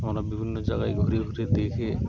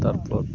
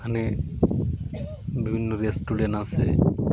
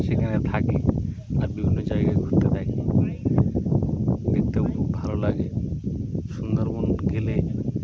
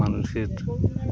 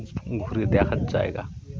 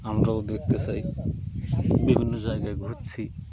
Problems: constant background noise, continuous background conversations